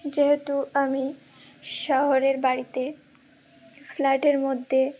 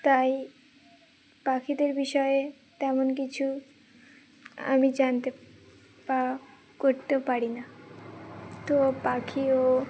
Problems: background sounds at intervals